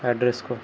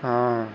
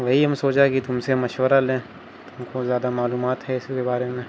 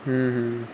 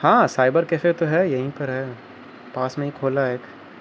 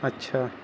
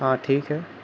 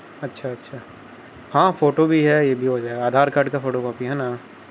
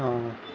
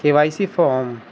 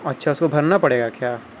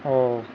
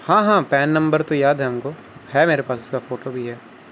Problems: constant background noise